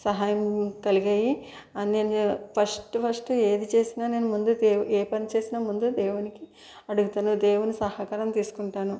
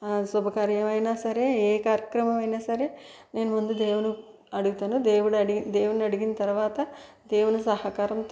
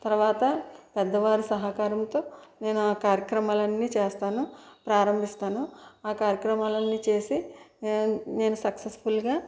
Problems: background sounds at intervals